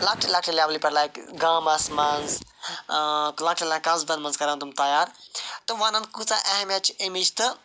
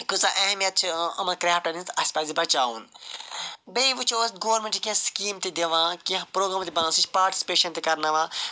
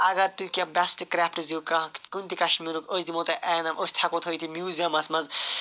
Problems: none marked